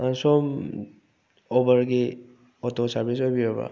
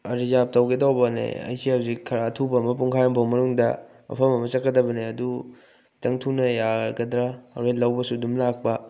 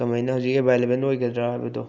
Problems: none marked